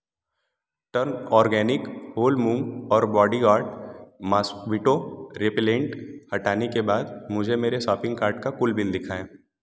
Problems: none marked